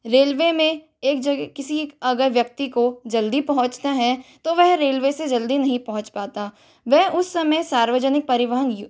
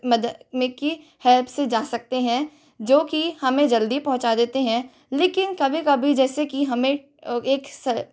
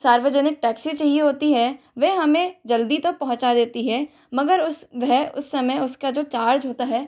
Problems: constant background noise